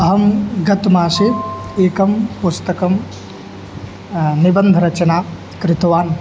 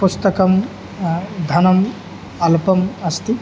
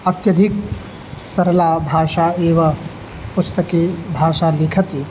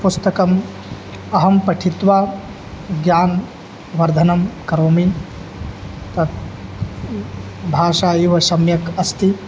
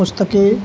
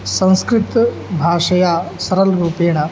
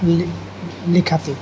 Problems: constant background noise